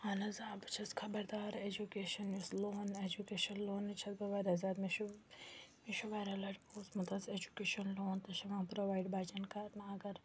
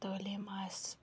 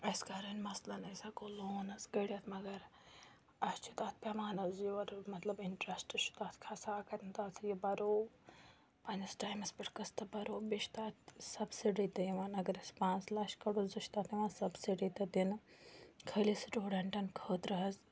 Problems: none marked